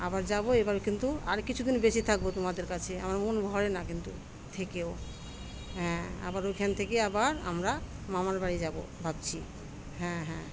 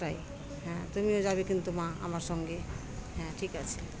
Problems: constant background noise, background conversations at intervals